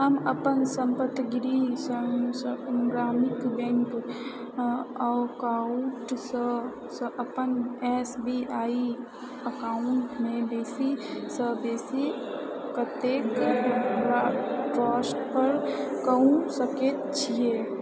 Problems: background sounds at intervals